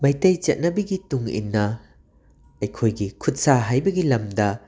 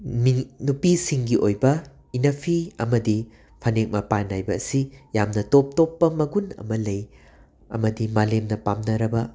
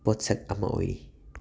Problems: constant background noise